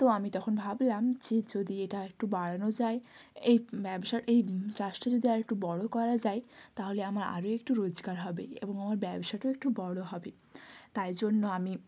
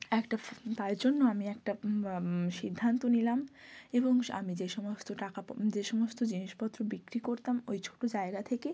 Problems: none marked